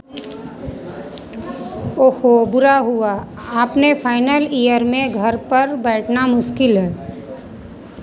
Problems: constant background noise, continuous background conversations